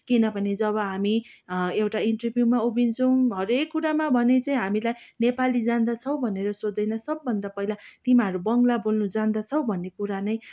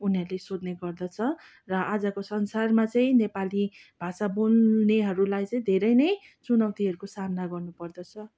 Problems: background sounds at intervals